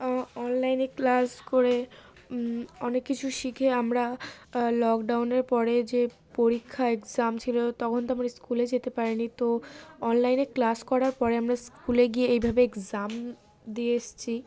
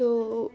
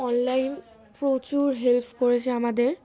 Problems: background sounds at intervals